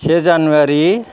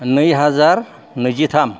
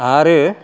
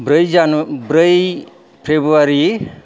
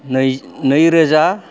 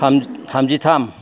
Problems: background sounds at intervals